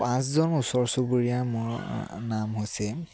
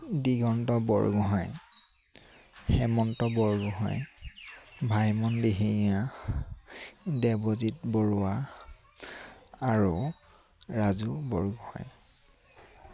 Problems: constant background noise